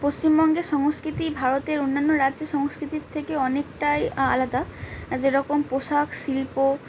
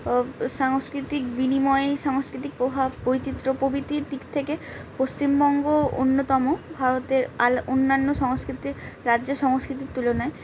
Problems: background conversations at intervals